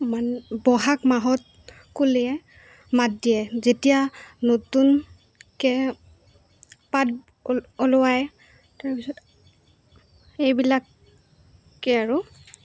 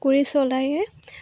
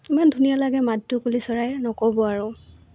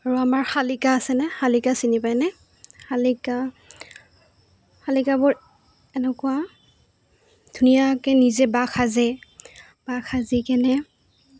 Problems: constant background noise